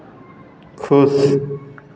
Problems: constant background noise